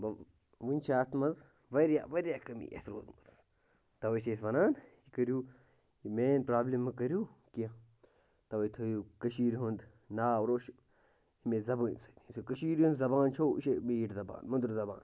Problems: constant background noise